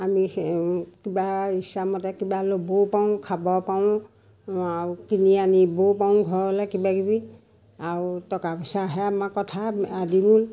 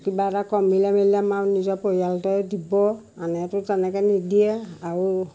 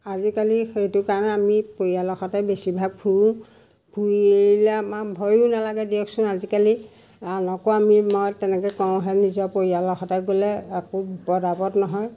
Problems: constant background noise, background conversations at intervals